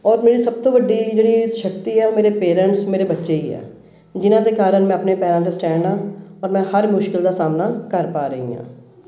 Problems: none marked